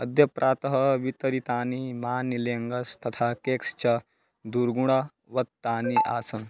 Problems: background sounds at intervals